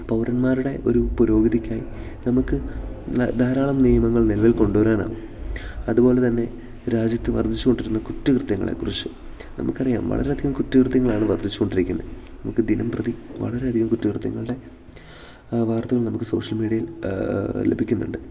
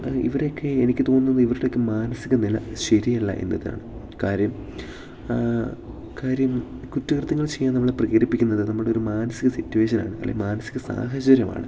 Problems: none marked